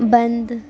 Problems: constant background noise